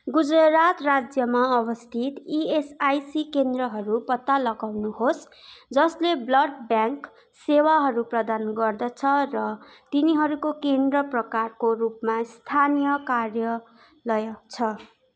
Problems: constant background noise